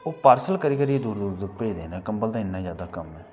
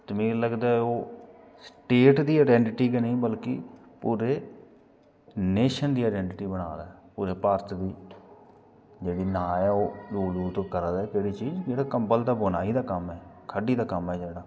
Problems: background sounds at intervals